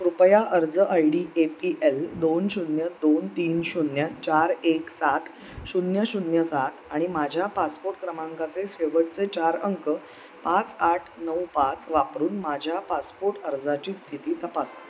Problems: none marked